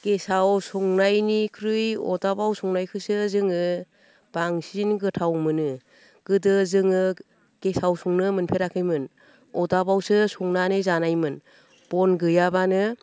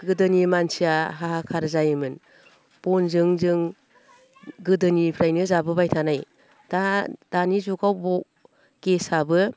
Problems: none marked